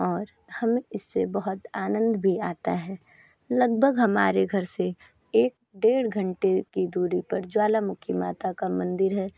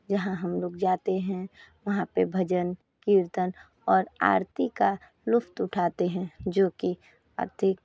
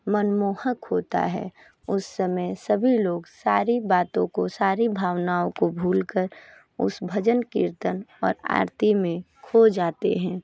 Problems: none marked